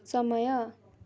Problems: none marked